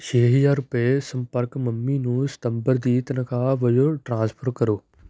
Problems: none marked